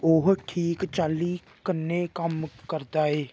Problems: constant background noise